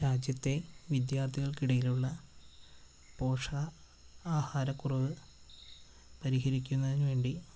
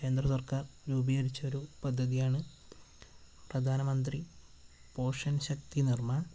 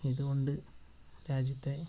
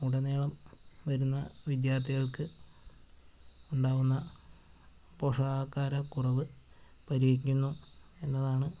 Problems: constant background noise